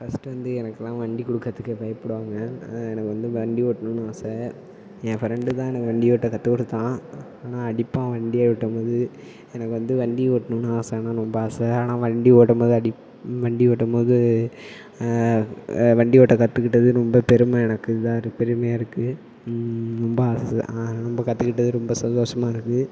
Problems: background sounds at intervals, low volume